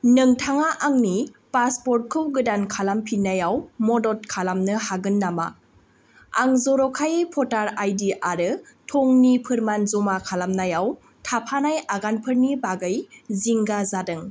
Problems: none marked